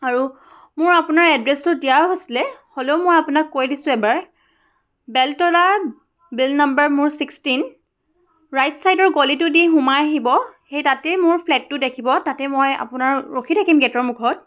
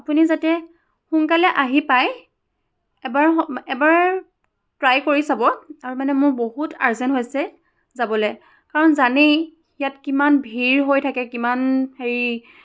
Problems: none marked